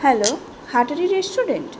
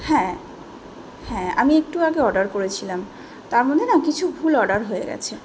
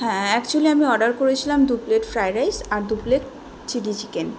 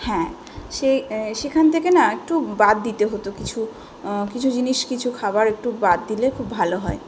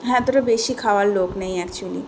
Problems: background sounds at intervals, background conversations at intervals